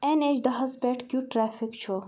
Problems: background sounds at intervals